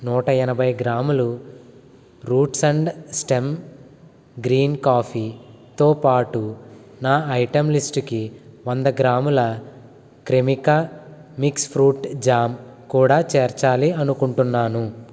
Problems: none marked